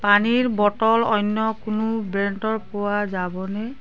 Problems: background conversations at intervals